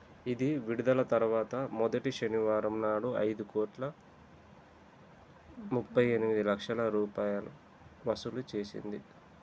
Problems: constant background noise